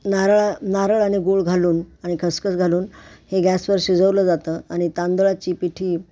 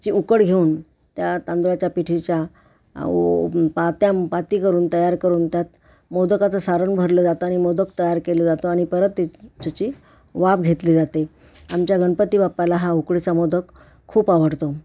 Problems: background sounds at intervals